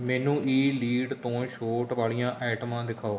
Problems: constant background noise